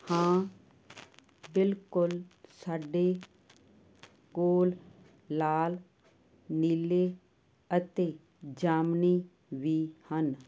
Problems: constant background noise